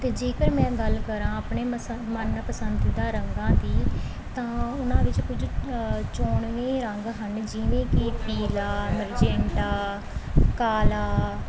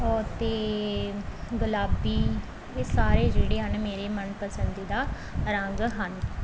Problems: background sounds at intervals